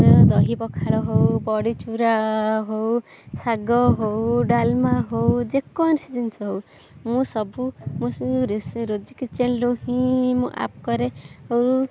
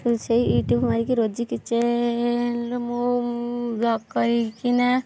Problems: none marked